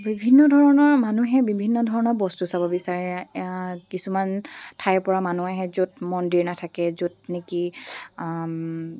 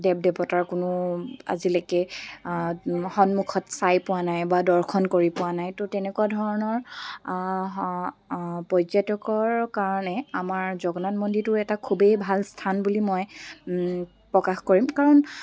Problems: background sounds at intervals